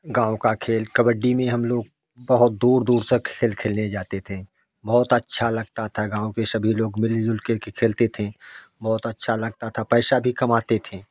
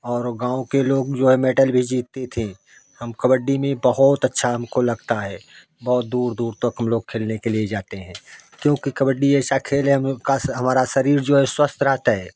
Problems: constant background noise